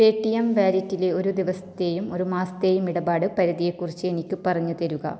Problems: low volume